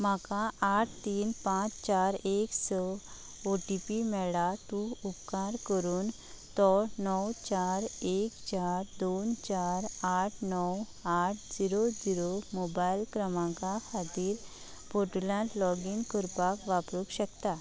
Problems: none marked